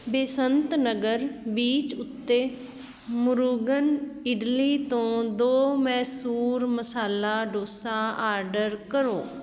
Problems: constant background noise